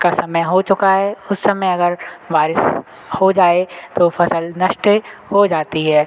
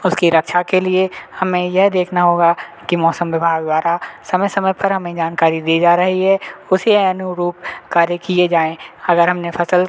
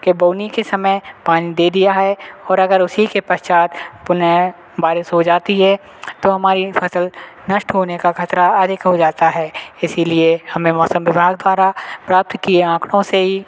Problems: constant background noise